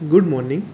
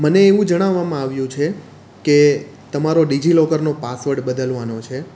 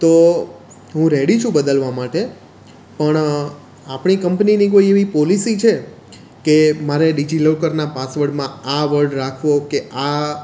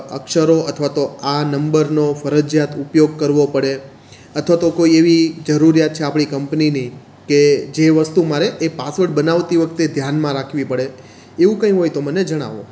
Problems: none marked